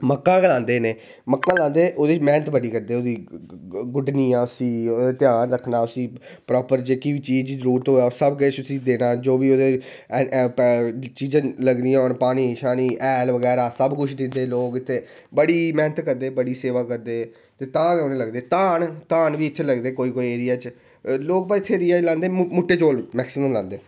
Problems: none marked